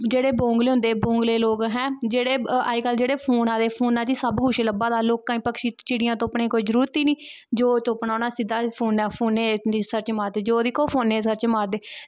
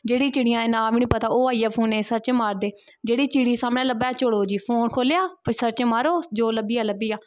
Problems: constant background noise